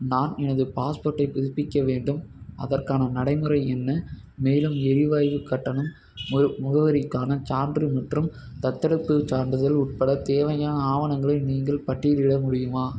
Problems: background sounds at intervals